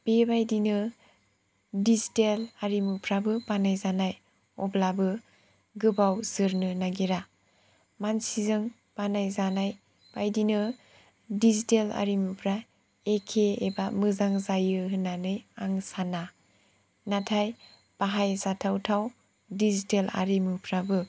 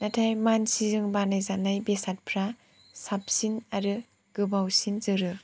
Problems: none marked